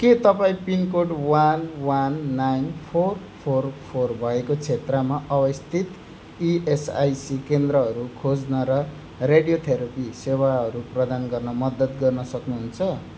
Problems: none marked